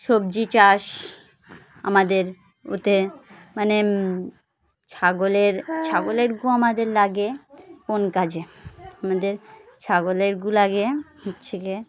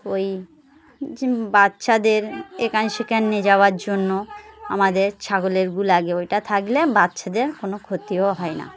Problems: constant background noise, continuous background conversations